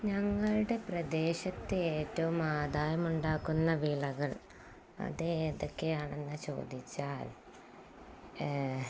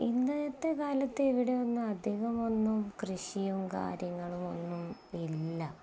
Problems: none marked